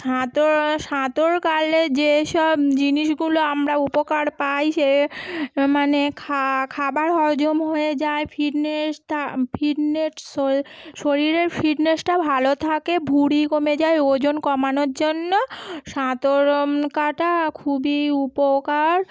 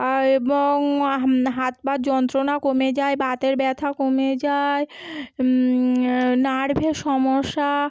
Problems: none marked